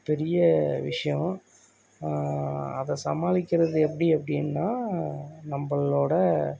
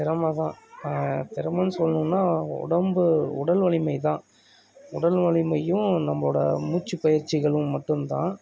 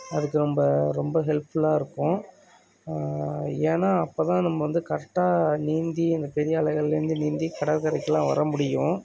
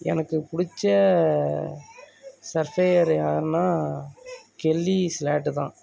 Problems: background conversations at intervals